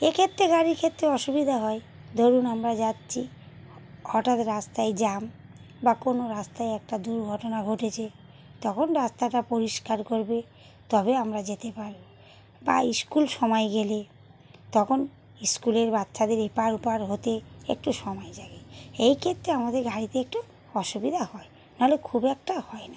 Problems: none marked